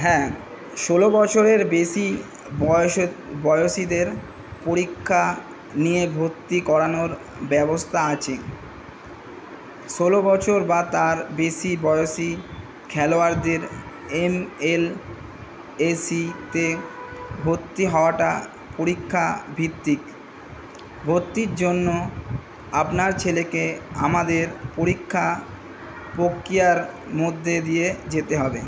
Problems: constant background noise